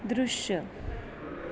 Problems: constant background noise